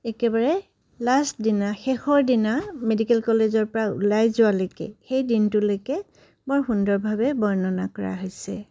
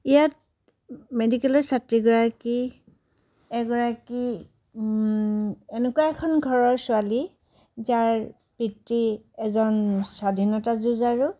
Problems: none marked